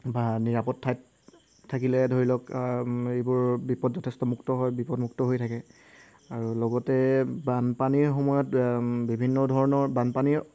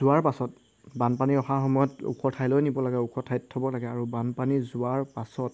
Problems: background sounds at intervals